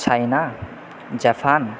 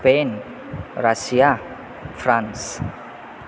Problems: constant background noise